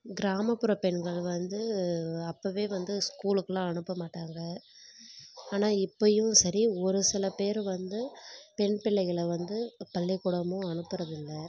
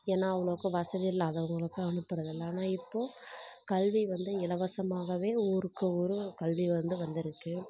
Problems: background sounds at intervals